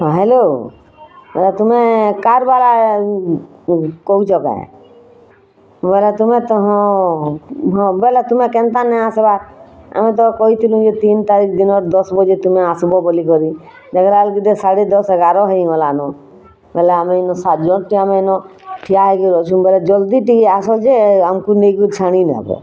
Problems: constant background noise